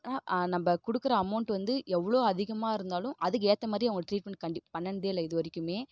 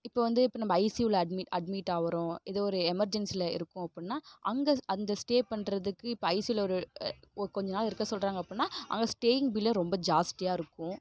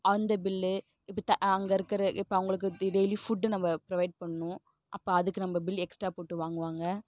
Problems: none marked